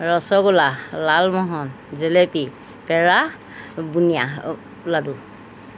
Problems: background sounds at intervals